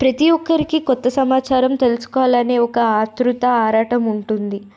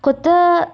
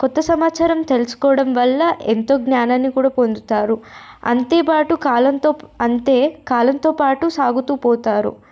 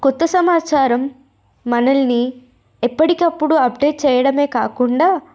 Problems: none marked